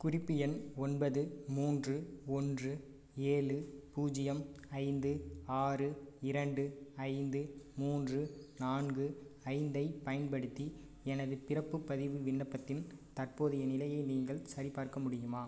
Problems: low volume